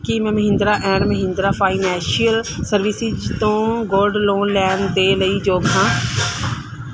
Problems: background sounds at intervals